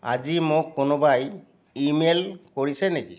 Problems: background sounds at intervals